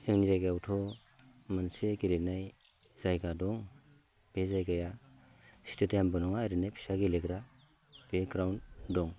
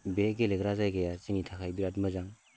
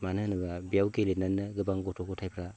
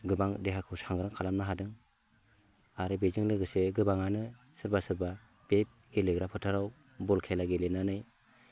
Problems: none marked